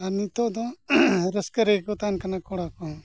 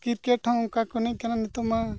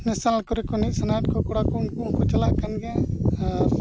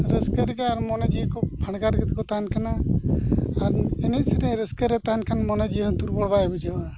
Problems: none marked